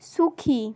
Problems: constant background noise